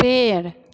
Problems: constant background noise, echo